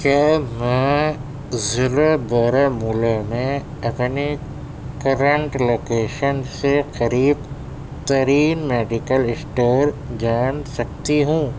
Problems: constant background noise